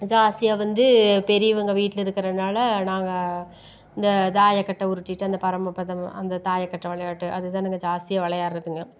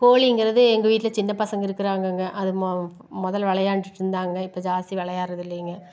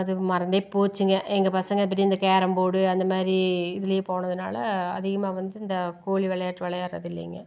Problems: none marked